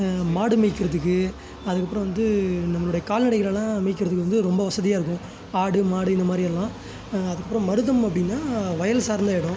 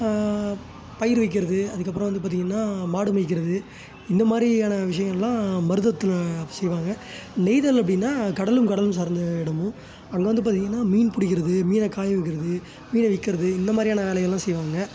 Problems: background sounds at intervals